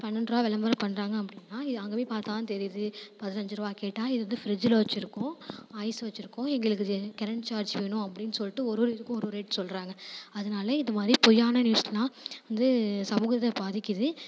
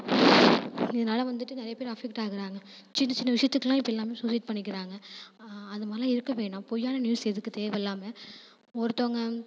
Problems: background sounds at intervals